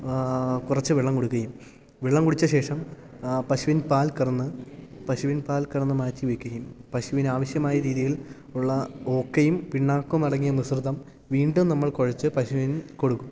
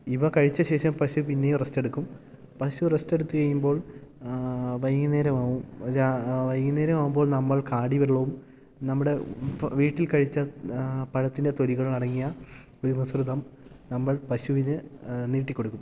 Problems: none marked